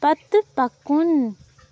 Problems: background sounds at intervals